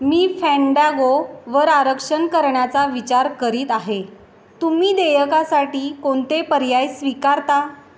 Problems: none marked